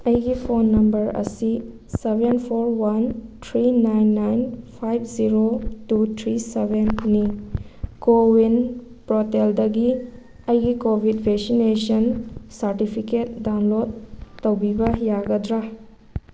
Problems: constant background noise